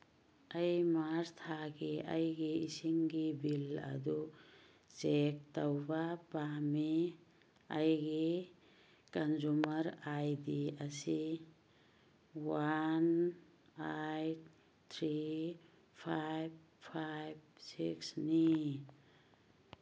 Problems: background sounds at intervals